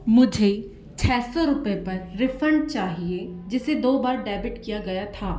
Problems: constant background noise, echo